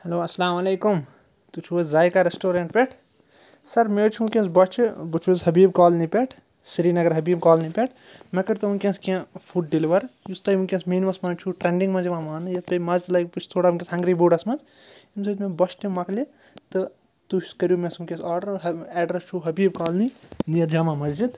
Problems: none marked